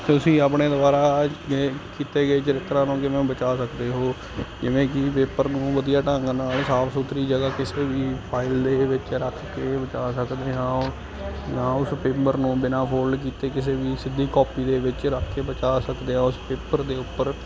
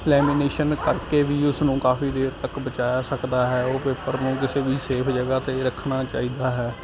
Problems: constant background noise